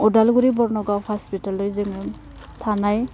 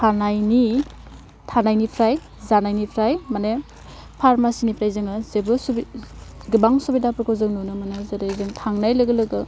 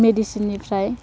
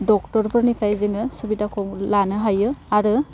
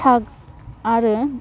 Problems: constant background noise